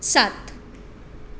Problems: constant background noise